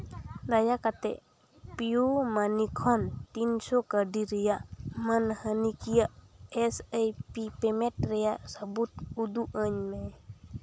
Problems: constant background noise, background conversations at intervals